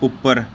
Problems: none marked